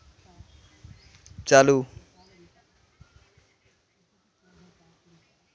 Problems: none marked